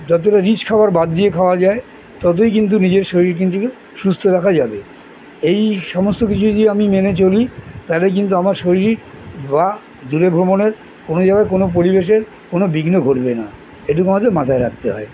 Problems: background sounds at intervals, background conversations at intervals